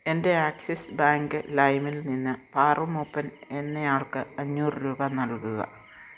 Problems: low volume